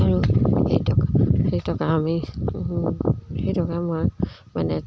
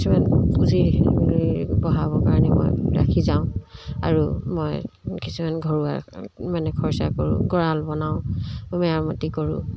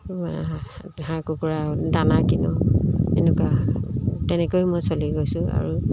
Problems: none marked